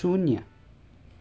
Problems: none marked